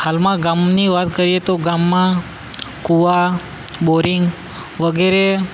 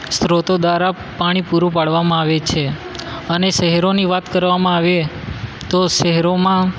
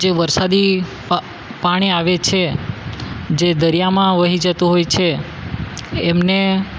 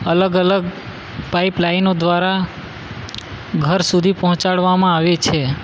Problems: constant background noise